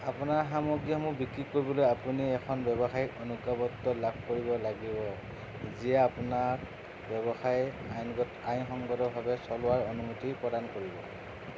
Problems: constant background noise, low volume